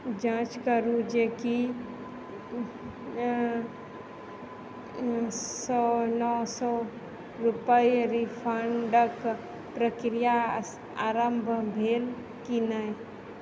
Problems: constant background noise